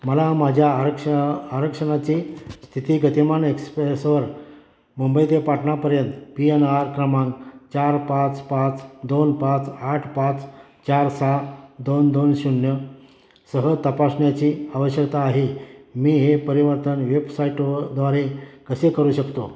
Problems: constant background noise, background conversations at intervals